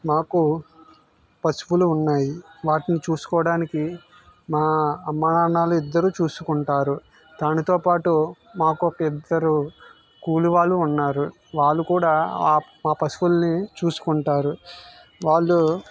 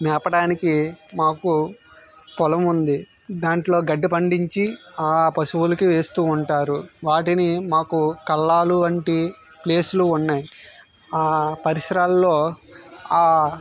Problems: background sounds at intervals